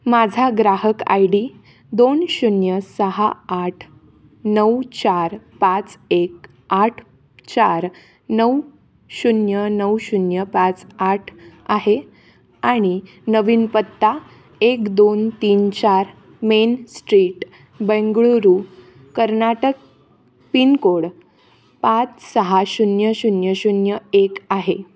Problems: background sounds at intervals